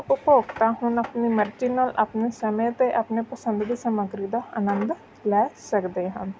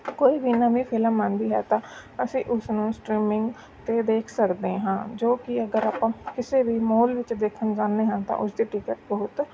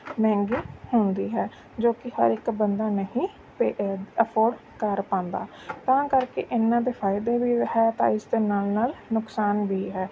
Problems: background sounds at intervals